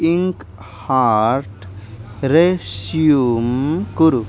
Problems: constant background noise